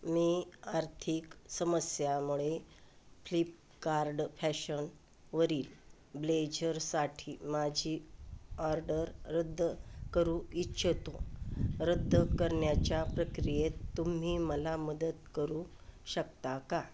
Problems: none marked